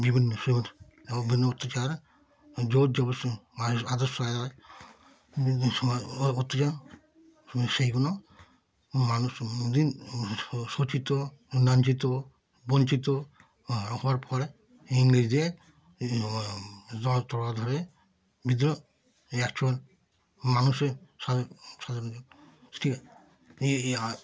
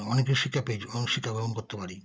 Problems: constant background noise